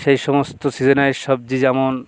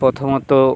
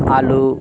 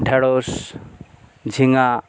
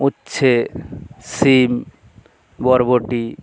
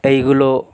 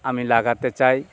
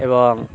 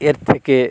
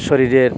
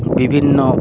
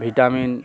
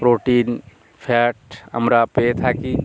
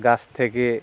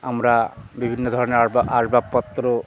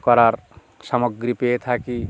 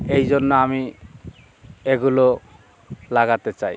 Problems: constant background noise